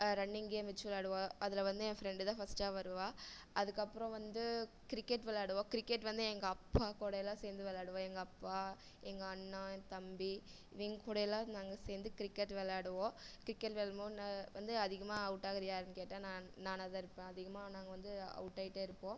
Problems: low volume